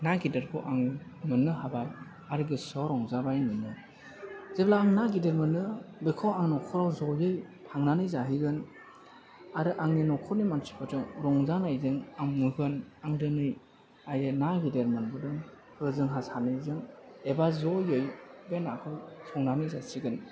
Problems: background conversations at intervals